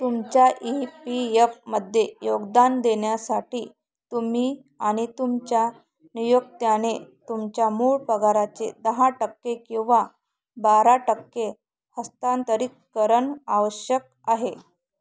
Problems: none marked